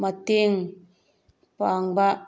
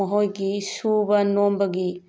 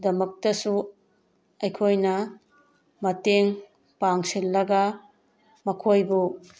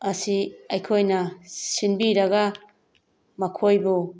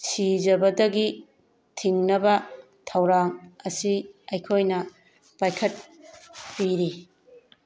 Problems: none marked